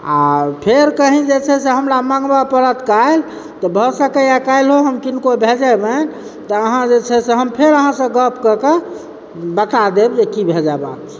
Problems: background sounds at intervals